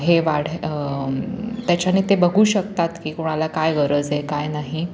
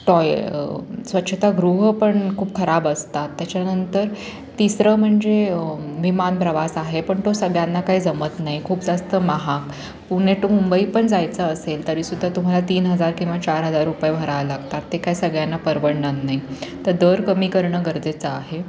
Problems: constant background noise, continuous background conversations